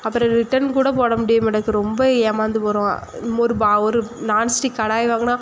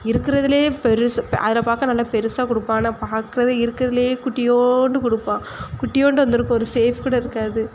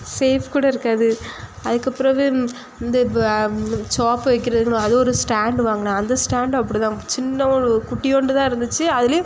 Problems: constant background noise